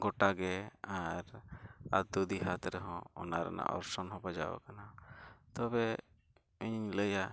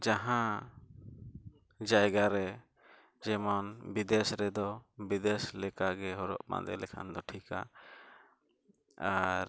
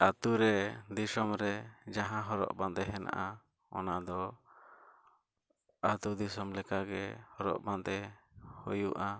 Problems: none marked